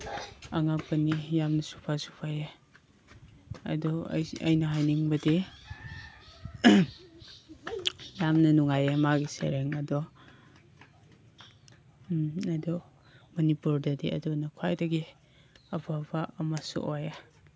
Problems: background sounds at intervals